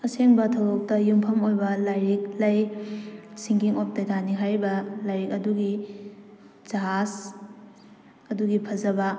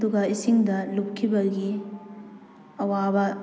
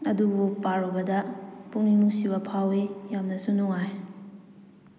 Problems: none marked